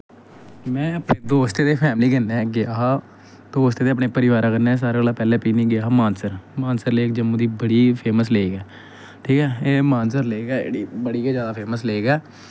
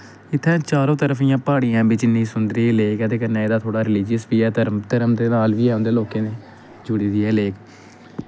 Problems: background sounds at intervals